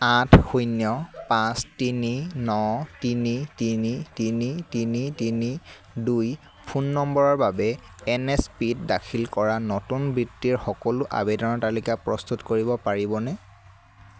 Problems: constant background noise